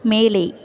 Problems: background conversations at intervals